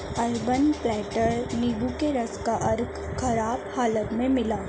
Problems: none marked